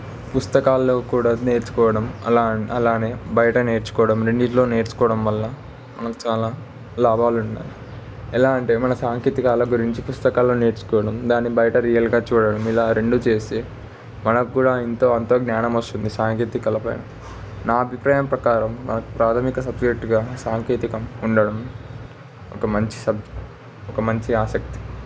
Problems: constant background noise